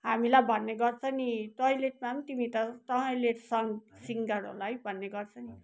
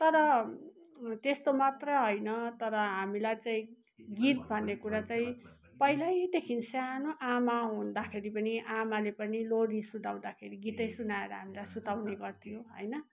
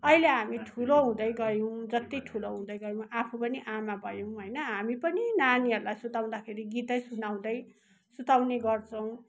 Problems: none marked